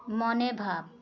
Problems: none marked